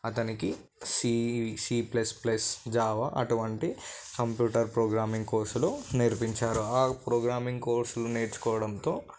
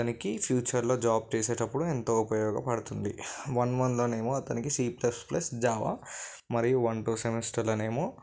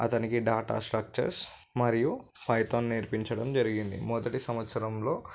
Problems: background sounds at intervals